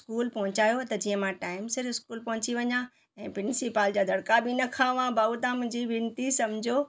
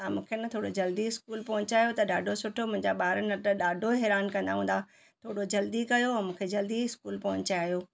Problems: none marked